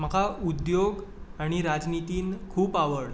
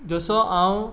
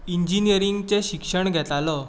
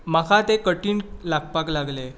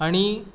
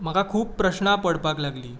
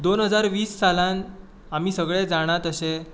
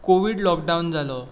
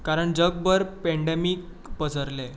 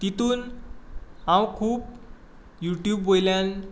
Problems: constant background noise